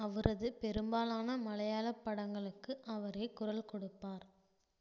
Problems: low volume